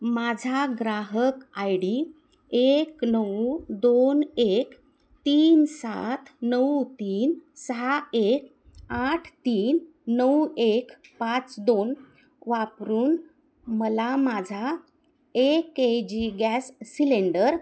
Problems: constant background noise